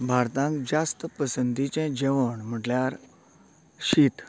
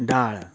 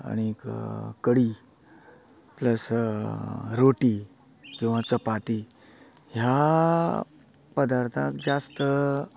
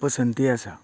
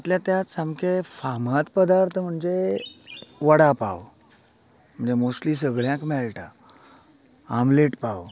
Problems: continuous background conversations